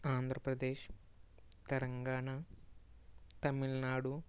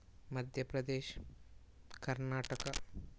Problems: low volume